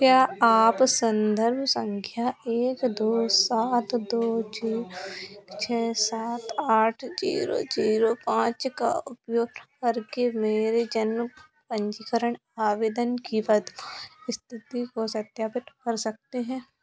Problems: background sounds at intervals